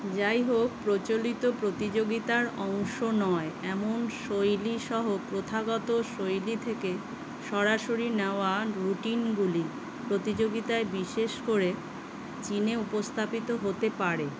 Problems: constant background noise